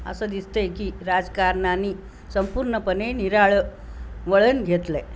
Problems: constant background noise